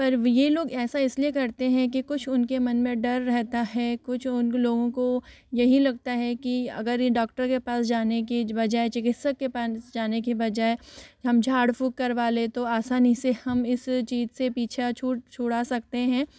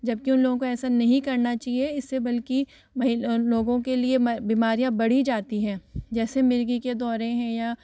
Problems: background sounds at intervals, echo